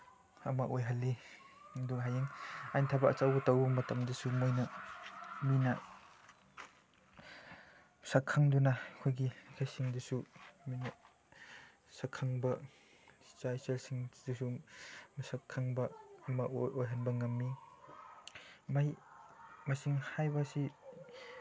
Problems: background conversations at intervals, low volume